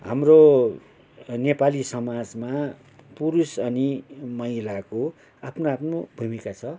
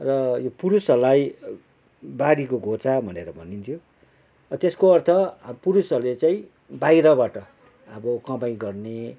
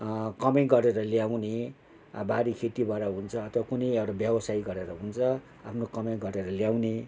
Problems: background sounds at intervals